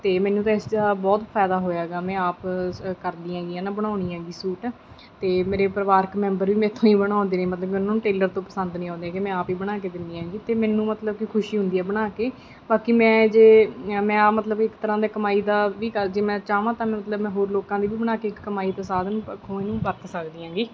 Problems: background sounds at intervals